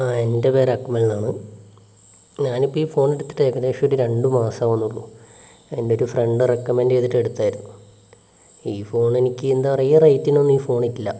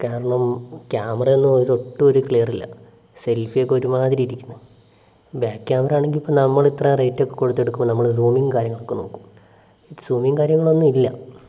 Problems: background sounds at intervals, low volume